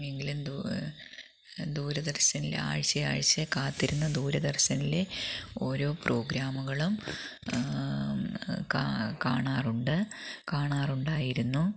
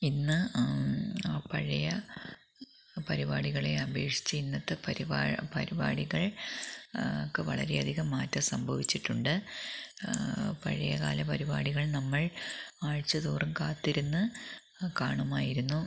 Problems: background sounds at intervals, low volume